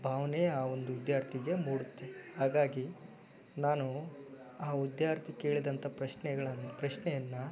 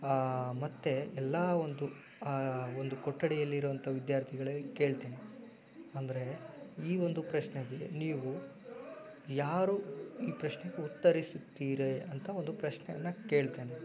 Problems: background sounds at intervals